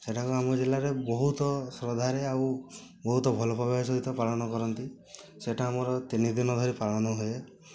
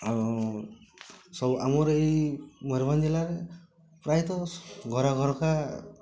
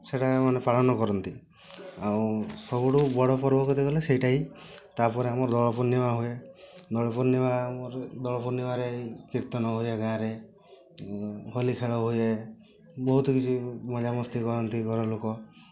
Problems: constant background noise, continuous background conversations